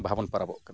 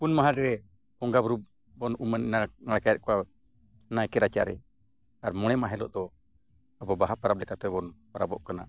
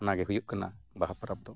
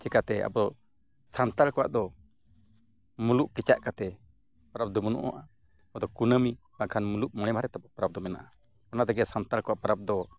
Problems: none marked